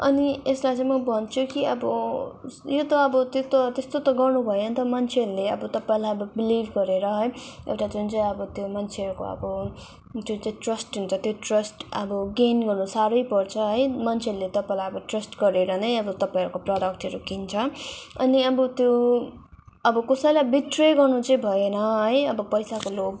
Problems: none marked